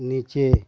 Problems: background sounds at intervals